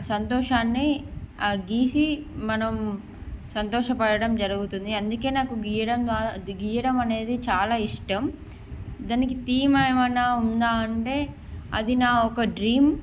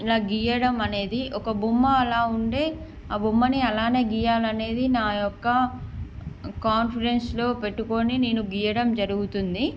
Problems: none marked